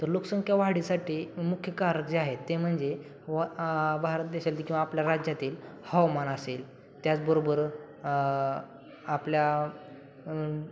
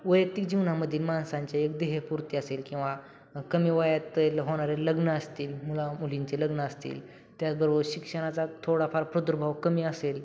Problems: background sounds at intervals